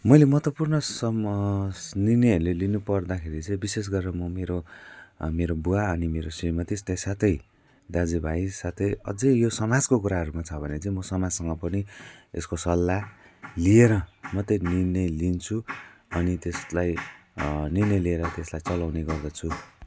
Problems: constant background noise